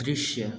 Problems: background sounds at intervals